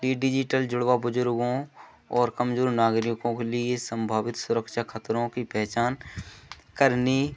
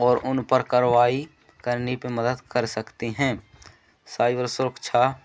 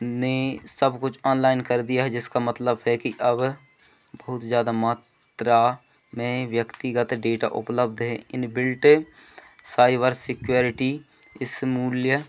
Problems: none marked